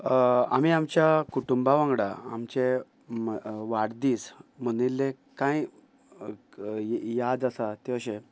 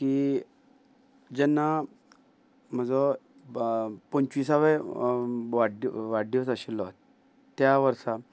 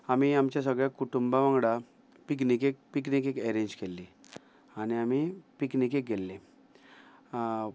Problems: background sounds at intervals